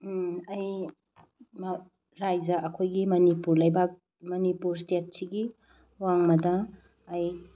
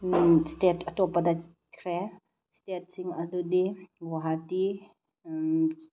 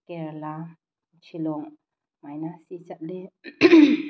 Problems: background sounds at intervals